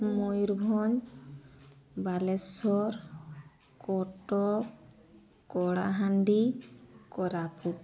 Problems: constant background noise